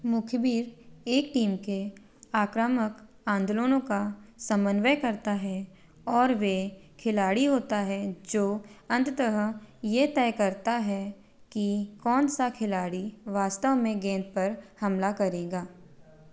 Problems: none marked